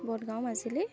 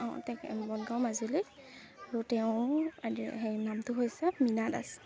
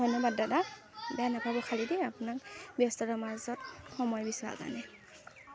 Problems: constant background noise